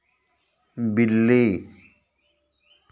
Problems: background sounds at intervals